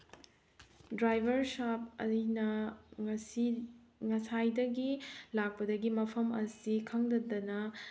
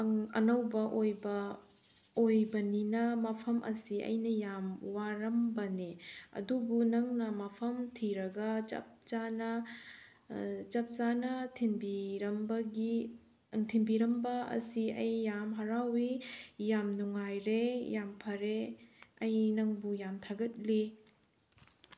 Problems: background sounds at intervals